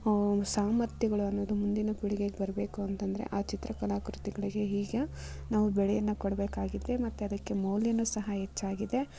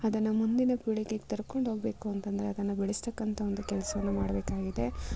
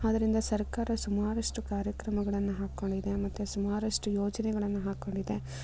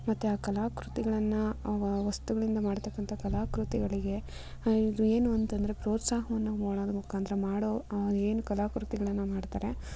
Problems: none marked